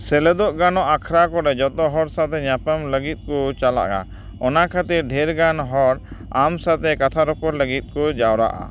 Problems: background sounds at intervals